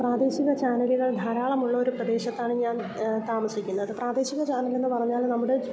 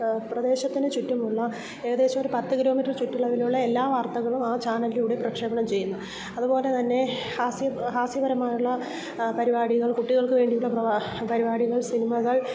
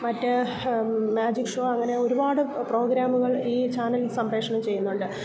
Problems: background sounds at intervals, low volume